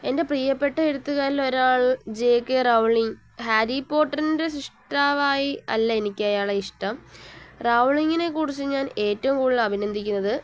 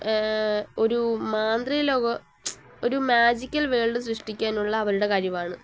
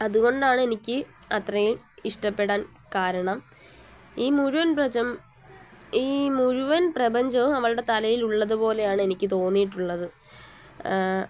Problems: constant background noise, low volume